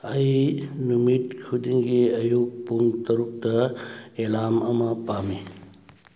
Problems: none marked